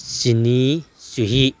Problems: none marked